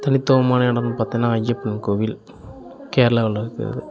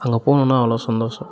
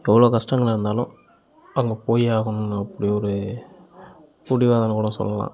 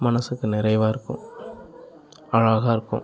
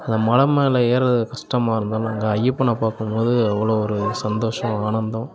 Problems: continuous background conversations